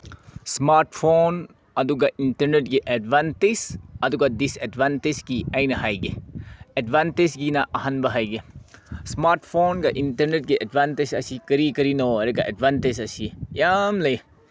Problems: none marked